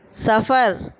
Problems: none marked